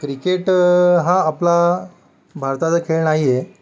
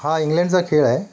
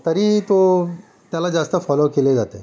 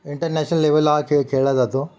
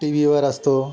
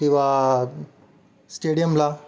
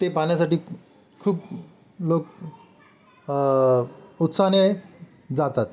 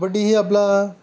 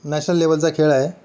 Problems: background sounds at intervals, background conversations at intervals